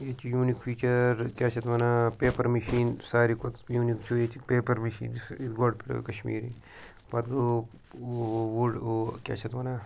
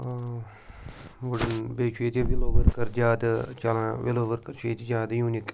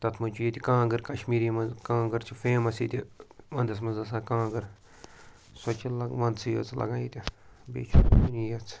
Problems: background sounds at intervals